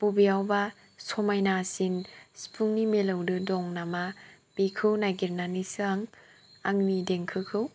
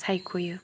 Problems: low volume